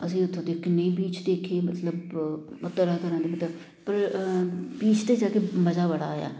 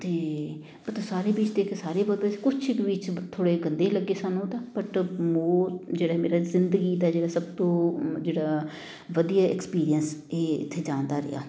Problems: constant background noise